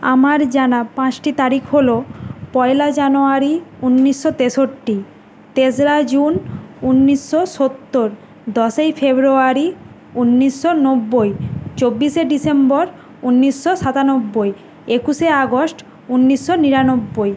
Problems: none marked